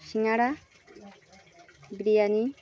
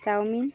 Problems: constant background noise, continuous background conversations